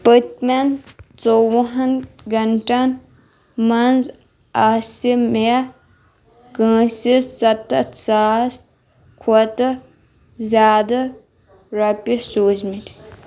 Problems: background sounds at intervals